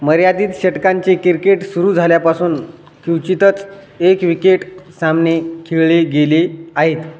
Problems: constant background noise, background conversations at intervals, echo